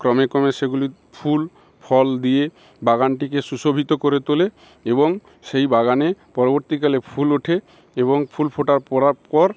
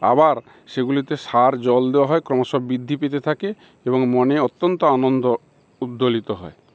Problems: constant background noise